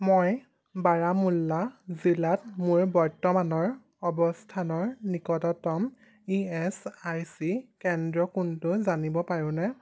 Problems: none marked